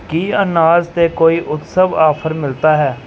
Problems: background sounds at intervals